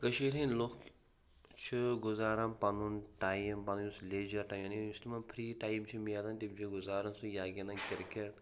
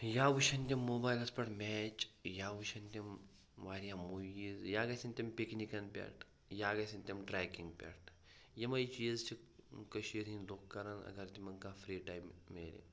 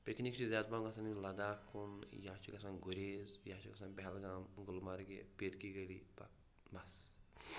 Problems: background sounds at intervals, low volume